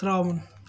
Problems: background sounds at intervals